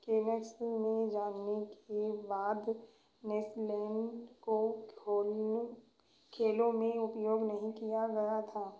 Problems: background sounds at intervals